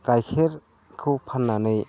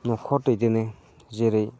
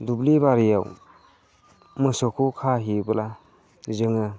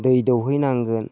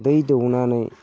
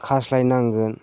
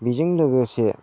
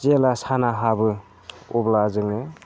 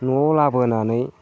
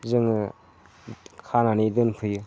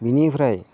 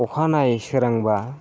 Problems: low volume